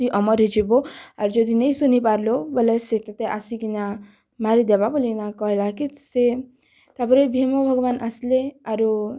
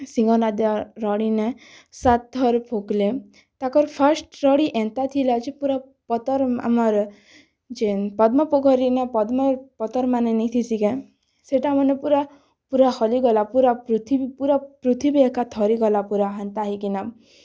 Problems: none marked